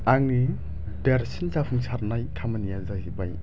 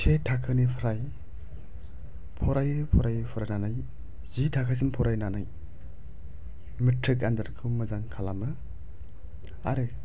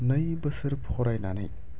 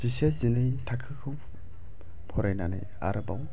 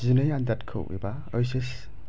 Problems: low volume